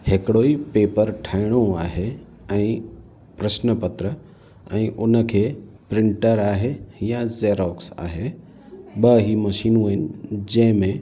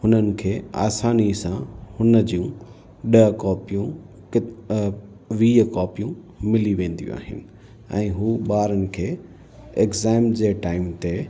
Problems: constant background noise, echo